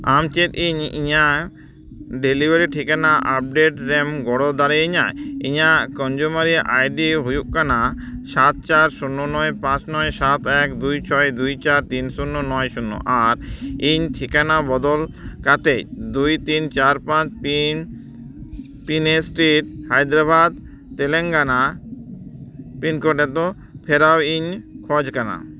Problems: none marked